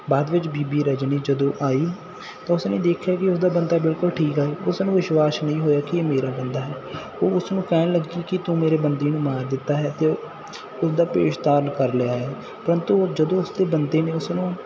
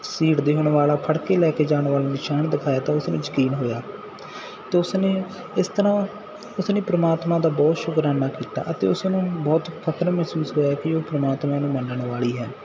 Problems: none marked